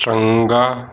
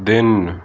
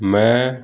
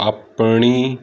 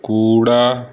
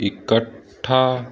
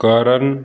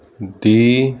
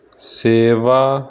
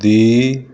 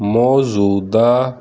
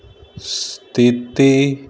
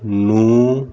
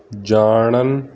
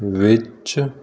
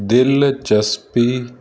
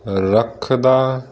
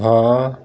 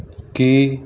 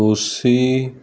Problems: none marked